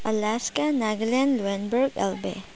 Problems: low volume